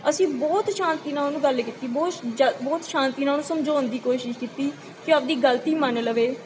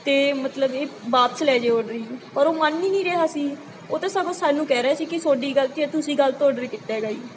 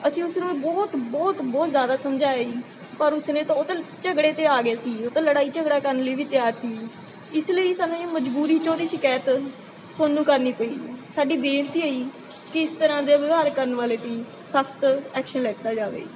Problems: constant background noise